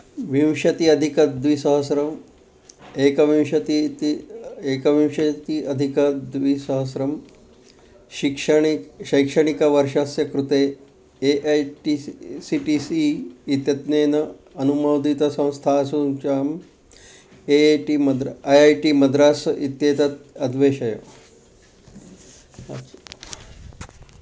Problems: background sounds at intervals